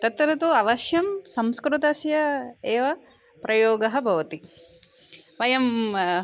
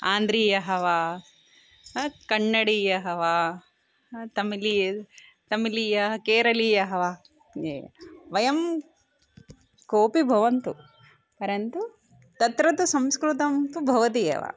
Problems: background sounds at intervals